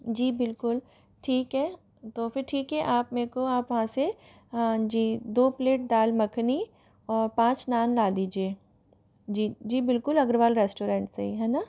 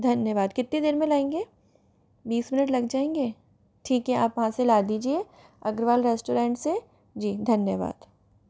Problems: none marked